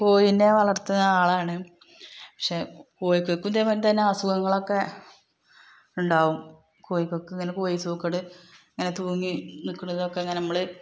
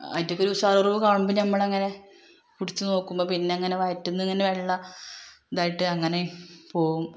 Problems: background sounds at intervals, background conversations at intervals